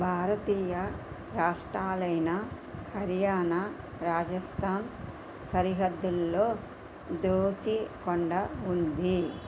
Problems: none marked